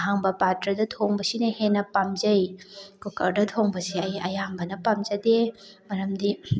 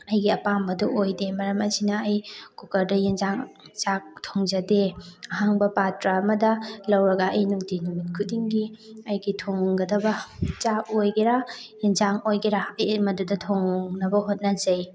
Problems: background sounds at intervals, continuous background conversations